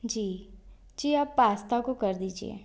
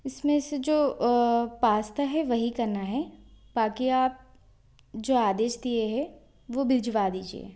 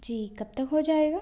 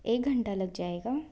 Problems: constant background noise